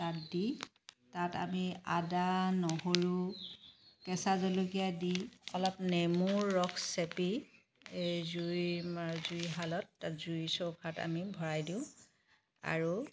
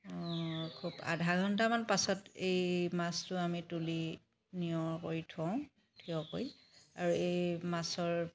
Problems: background sounds at intervals, background conversations at intervals